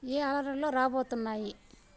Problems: constant background noise, background conversations at intervals